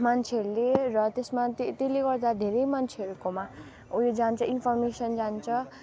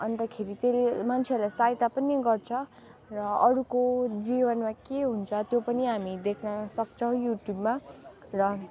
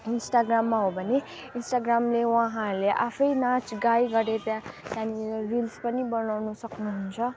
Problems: constant background noise